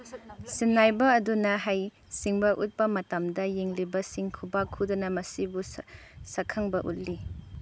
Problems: none marked